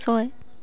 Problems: constant background noise